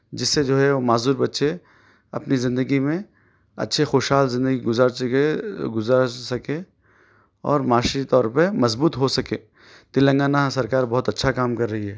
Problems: background sounds at intervals